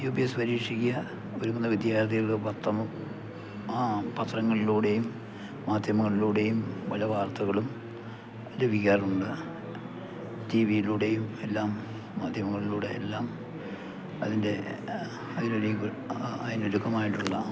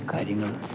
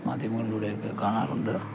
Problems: background sounds at intervals, low volume